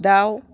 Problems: none marked